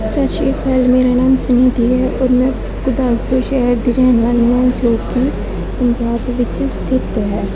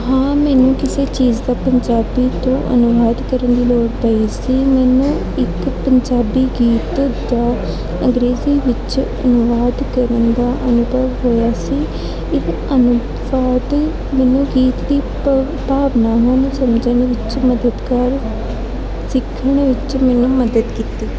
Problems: constant background noise, continuous background conversations